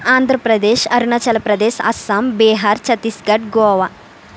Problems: constant background noise